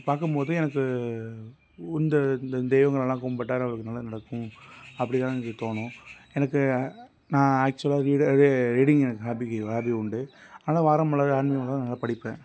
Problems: constant background noise